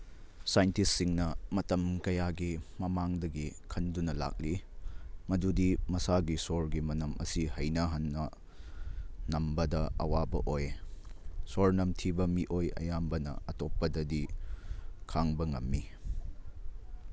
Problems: none marked